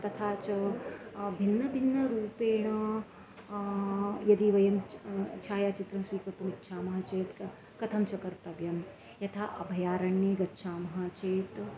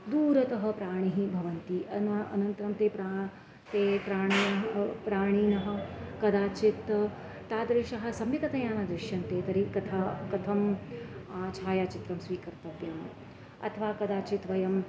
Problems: constant background noise, background conversations at intervals